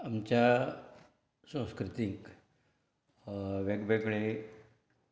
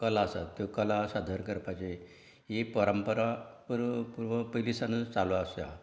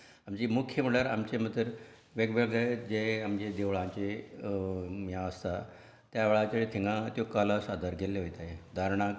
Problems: none marked